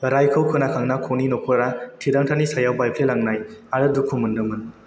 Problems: constant background noise